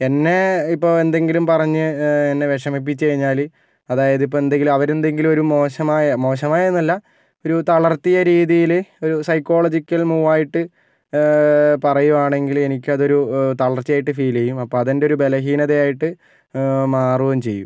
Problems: none marked